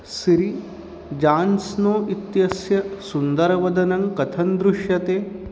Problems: constant background noise